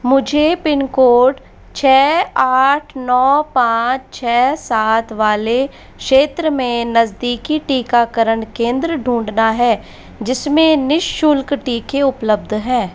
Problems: constant background noise